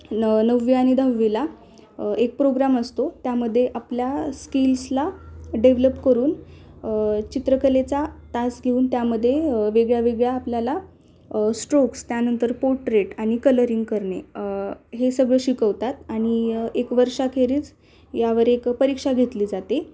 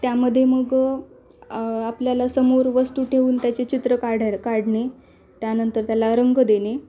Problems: none marked